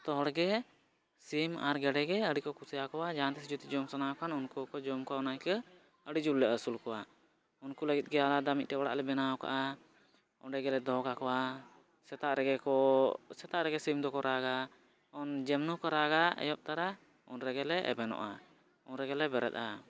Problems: none marked